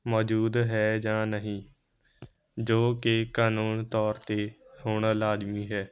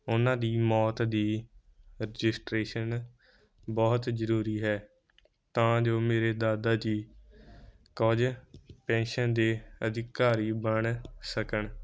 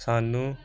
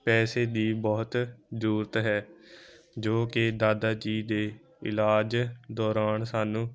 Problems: none marked